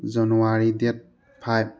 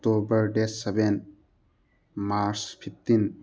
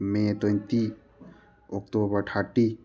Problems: background sounds at intervals, background conversations at intervals